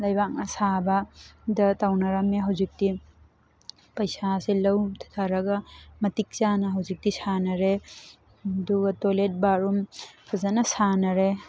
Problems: constant background noise